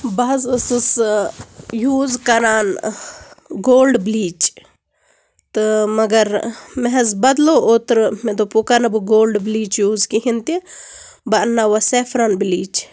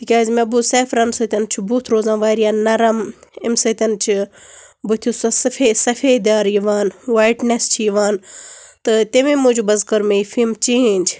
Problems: constant background noise